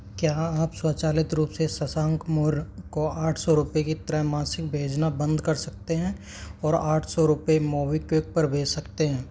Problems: none marked